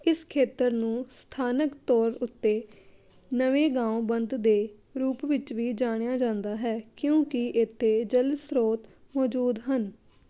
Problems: none marked